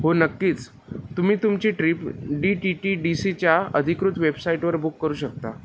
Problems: constant background noise